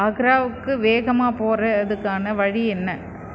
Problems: constant background noise